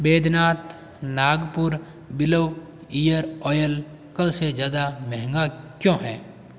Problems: none marked